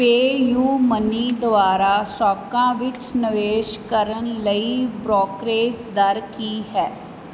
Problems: constant background noise